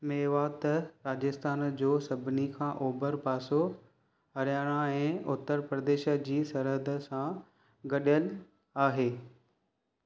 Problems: none marked